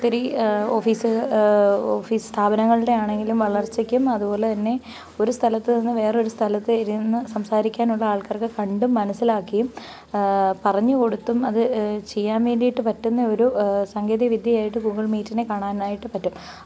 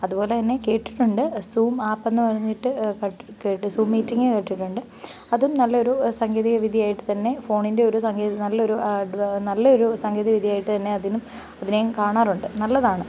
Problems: background sounds at intervals